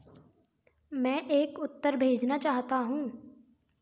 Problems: background sounds at intervals